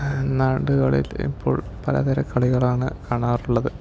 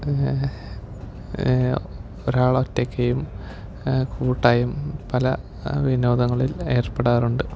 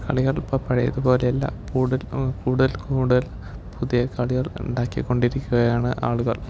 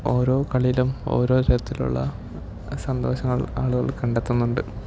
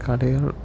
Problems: low volume